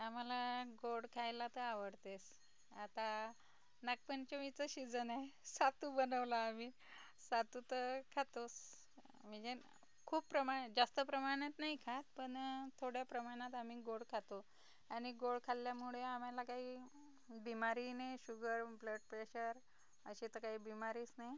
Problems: low volume